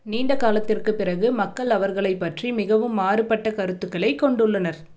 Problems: none marked